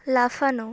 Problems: none marked